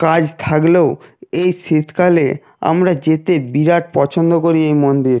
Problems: constant background noise